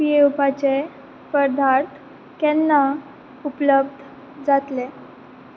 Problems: none marked